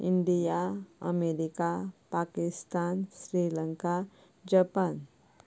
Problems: none marked